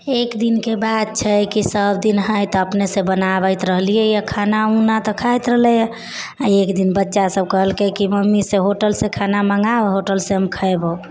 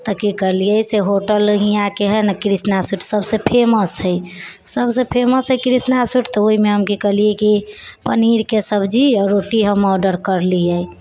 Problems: background conversations at intervals